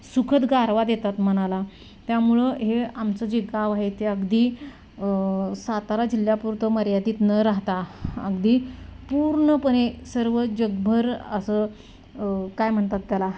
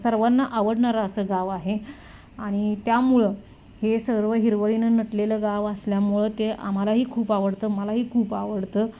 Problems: constant background noise